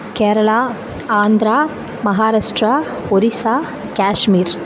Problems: constant background noise